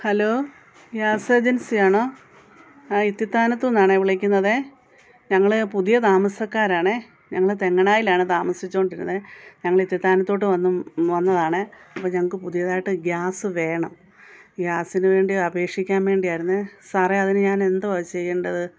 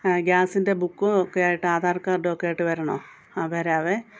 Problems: background sounds at intervals